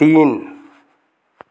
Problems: background sounds at intervals